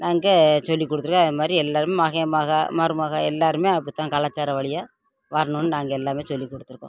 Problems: constant background noise